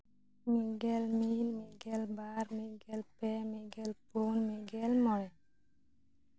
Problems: background conversations at intervals